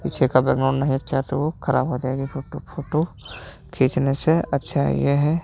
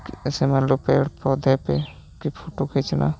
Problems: constant background noise, background conversations at intervals